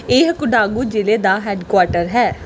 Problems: background sounds at intervals